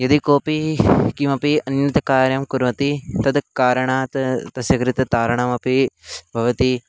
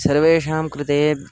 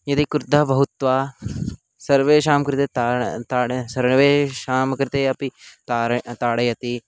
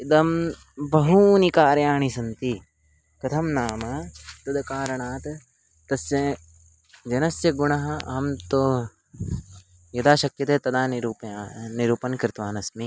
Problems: constant background noise